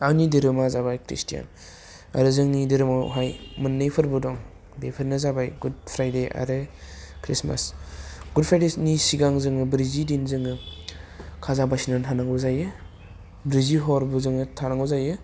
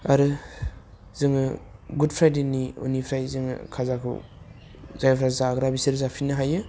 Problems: none marked